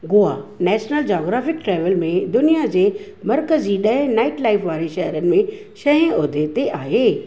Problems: none marked